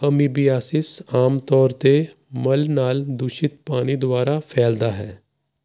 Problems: constant background noise